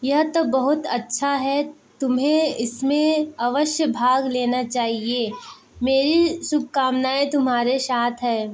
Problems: background sounds at intervals, background conversations at intervals